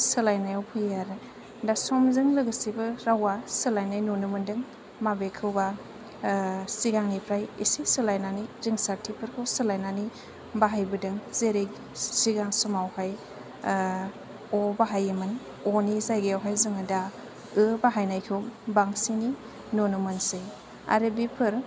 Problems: none marked